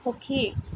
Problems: constant background noise